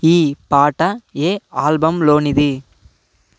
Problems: constant background noise